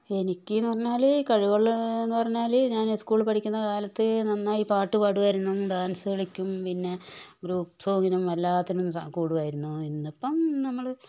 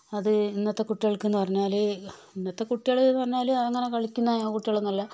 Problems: background sounds at intervals, low volume